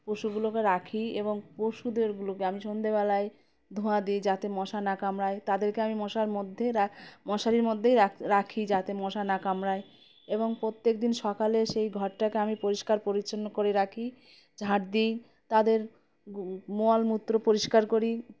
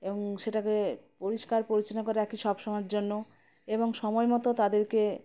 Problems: constant background noise